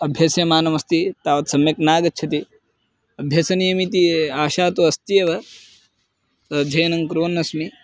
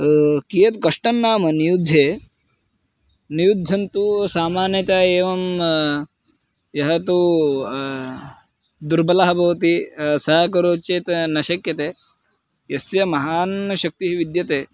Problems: constant background noise